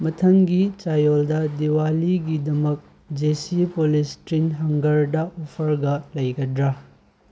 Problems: none marked